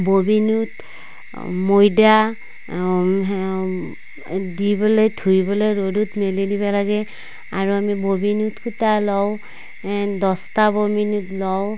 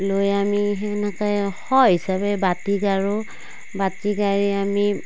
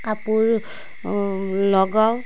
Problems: constant background noise